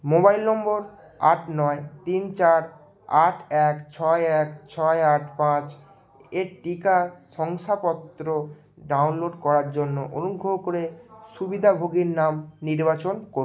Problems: none marked